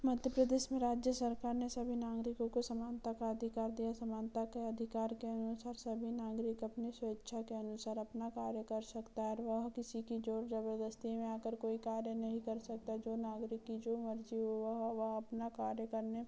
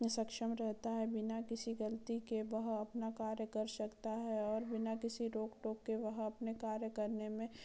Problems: none marked